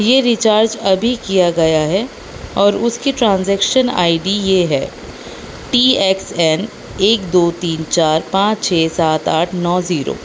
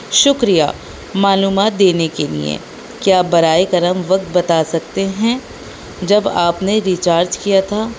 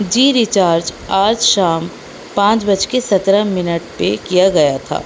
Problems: constant background noise